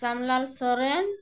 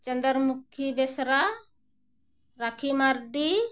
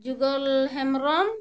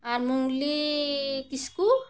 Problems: none marked